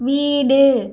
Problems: none marked